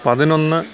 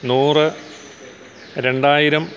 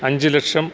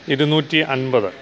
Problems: constant background noise